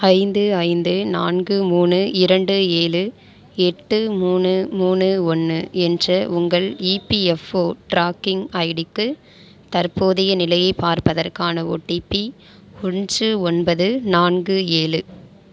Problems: none marked